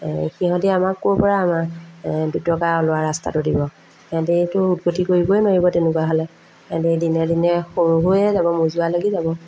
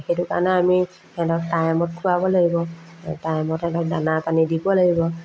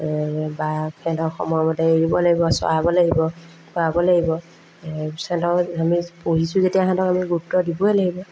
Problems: constant background noise, background conversations at intervals